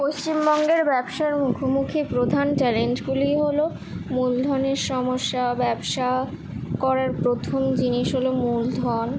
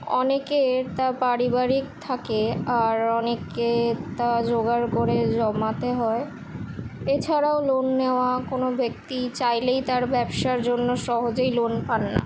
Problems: constant background noise